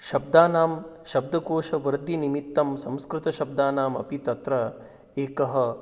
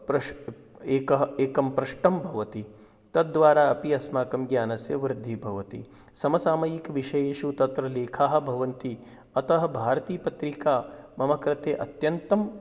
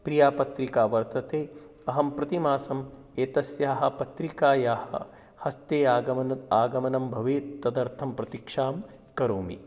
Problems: background sounds at intervals